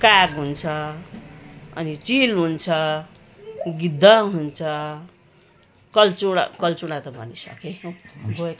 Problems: constant background noise